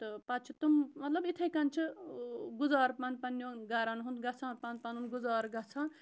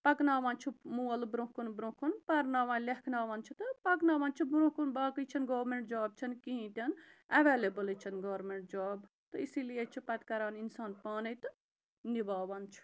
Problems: background sounds at intervals